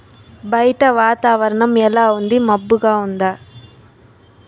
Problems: none marked